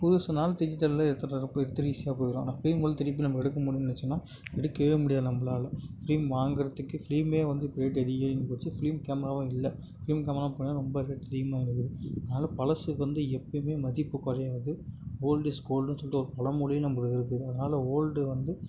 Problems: none marked